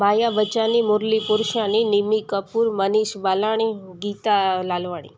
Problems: constant background noise